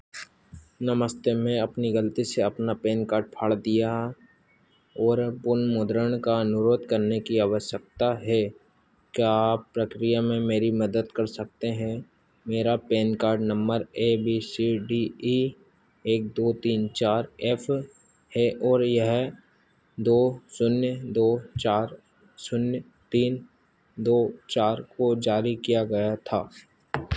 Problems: constant background noise